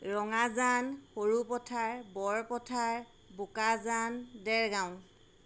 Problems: none marked